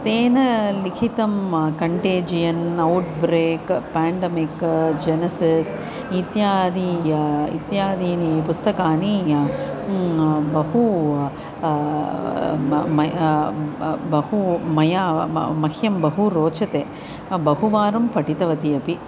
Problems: constant background noise